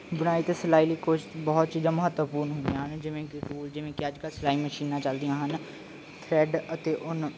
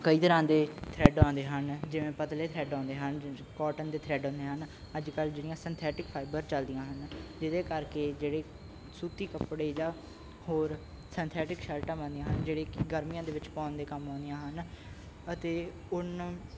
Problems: none marked